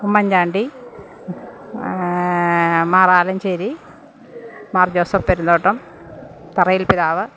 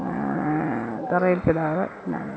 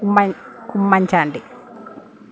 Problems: none marked